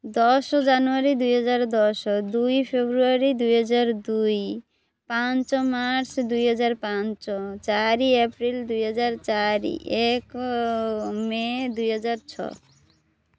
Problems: none marked